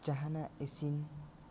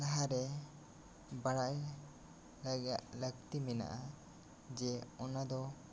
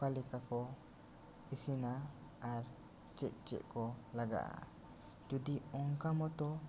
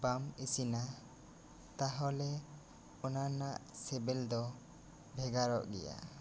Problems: constant background noise